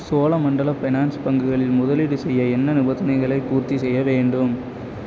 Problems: constant background noise